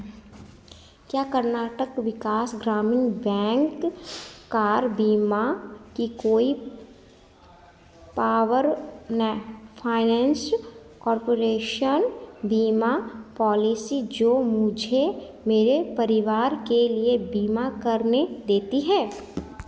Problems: constant background noise, echo